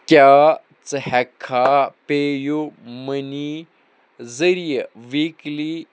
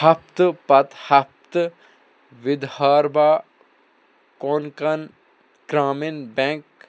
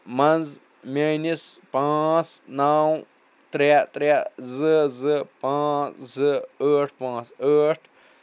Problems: none marked